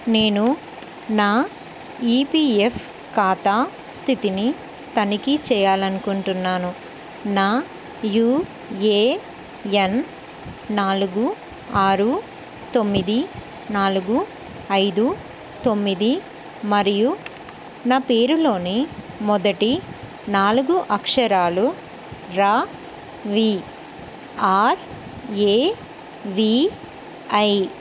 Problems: constant background noise